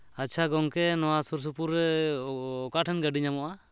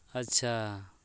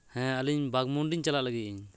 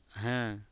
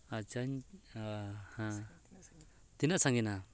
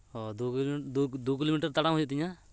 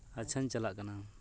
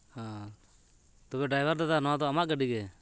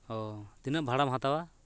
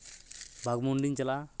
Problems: background conversations at intervals